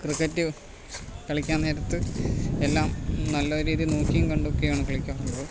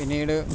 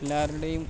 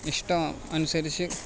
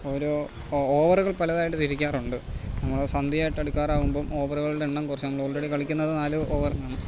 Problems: constant background noise, low volume